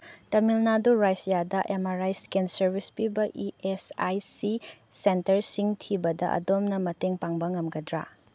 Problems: none marked